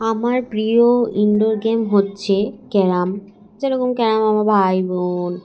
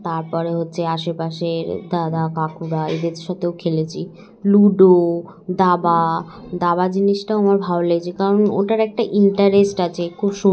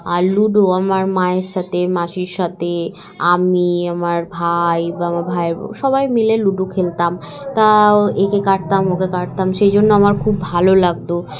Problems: constant background noise, continuous background conversations